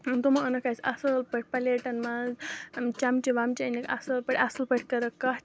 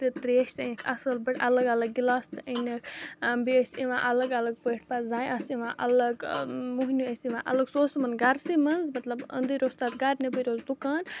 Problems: constant background noise, background conversations at intervals